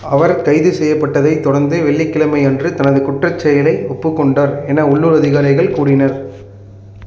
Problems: none marked